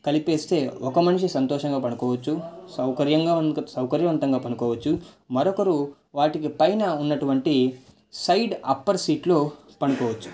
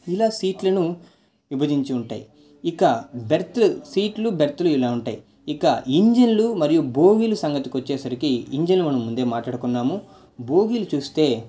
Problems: none marked